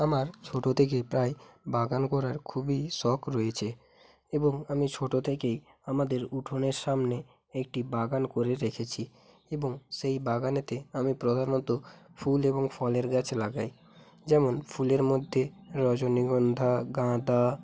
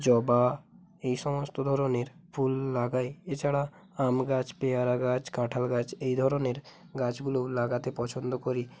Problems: constant background noise